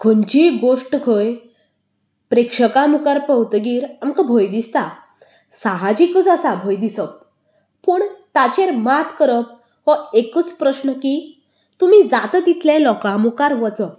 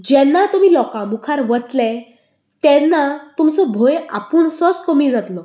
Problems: none marked